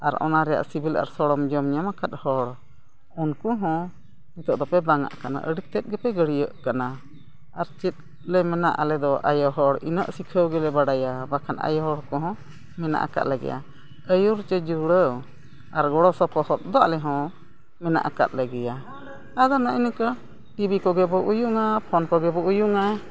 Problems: constant background noise, background conversations at intervals